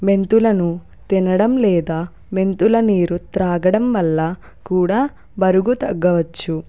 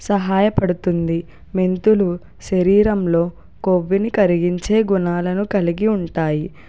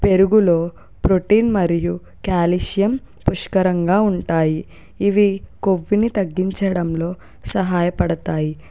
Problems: none marked